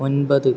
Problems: constant background noise, low volume